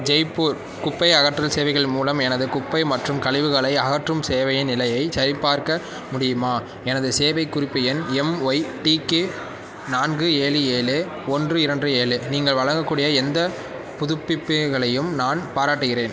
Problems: background sounds at intervals